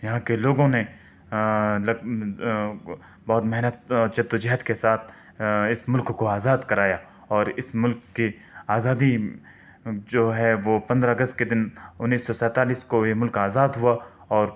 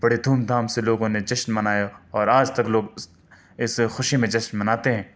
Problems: none marked